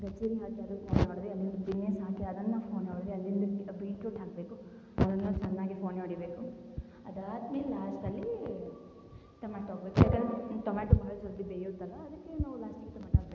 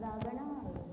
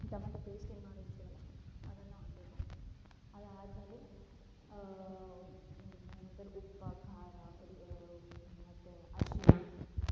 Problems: low volume